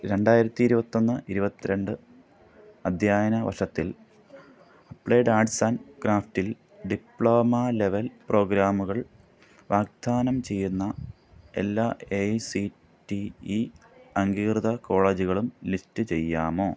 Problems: background sounds at intervals